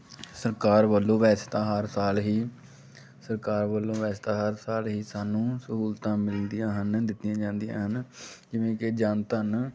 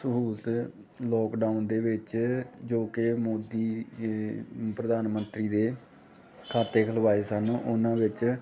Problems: none marked